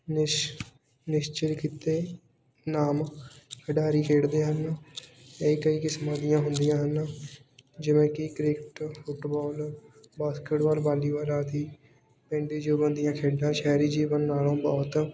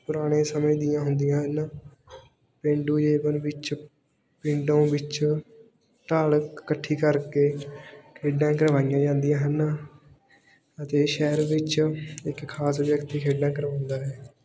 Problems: none marked